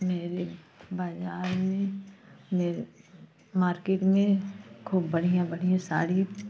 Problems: constant background noise